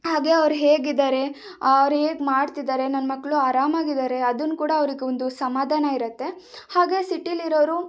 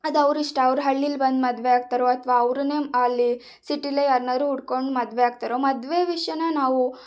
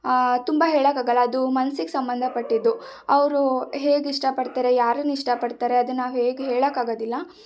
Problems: none marked